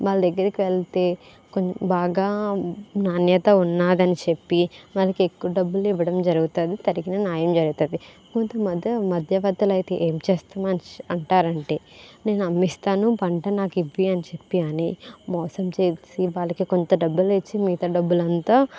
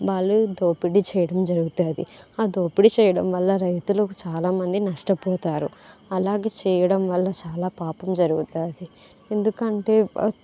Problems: background conversations at intervals